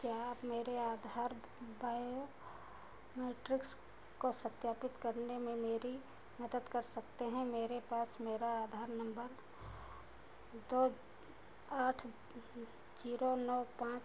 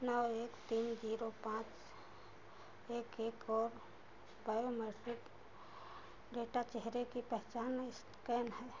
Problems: constant background noise